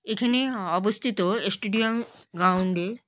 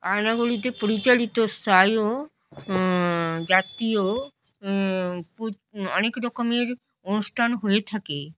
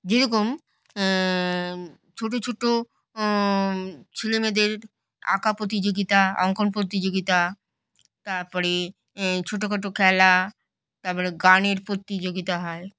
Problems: none marked